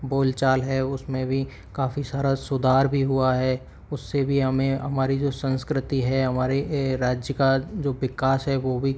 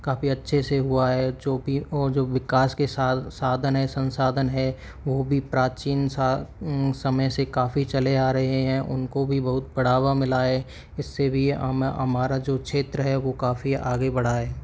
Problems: none marked